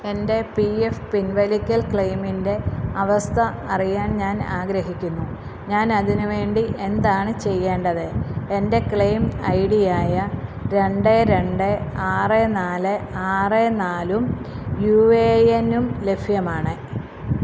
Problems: constant background noise